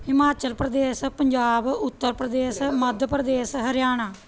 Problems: none marked